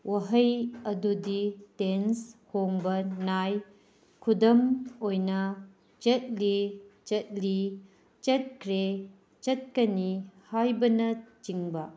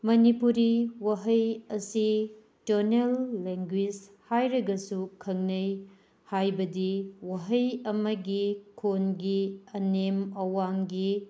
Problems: none marked